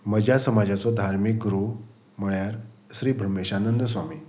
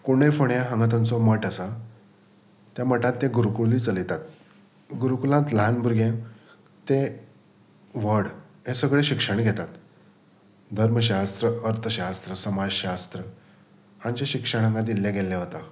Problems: background sounds at intervals